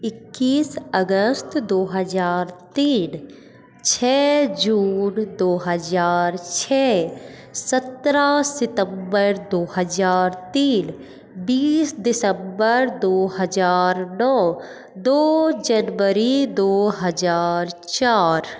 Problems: constant background noise, echo